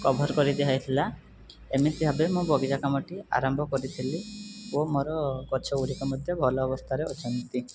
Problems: background sounds at intervals